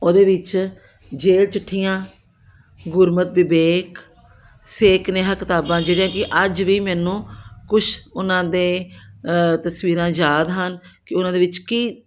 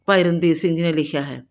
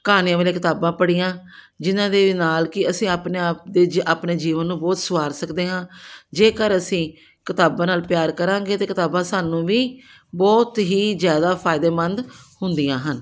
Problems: background sounds at intervals